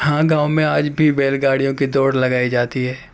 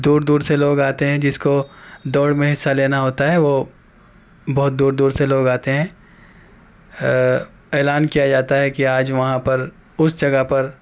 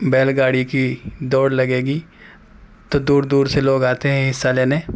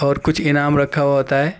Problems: background sounds at intervals